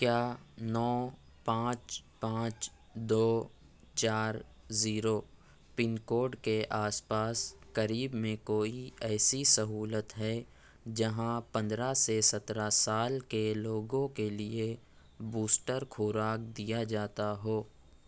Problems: background sounds at intervals, background conversations at intervals